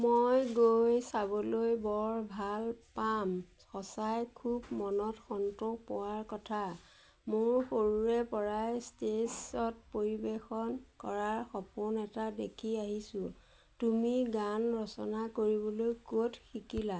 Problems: constant background noise